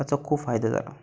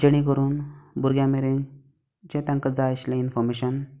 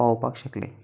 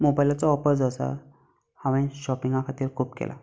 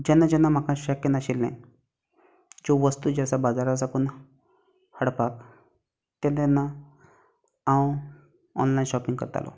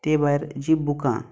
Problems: none marked